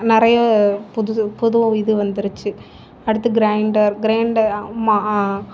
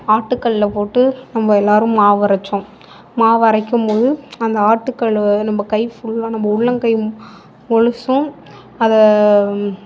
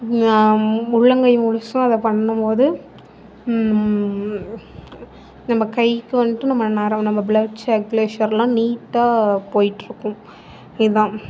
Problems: background sounds at intervals, background conversations at intervals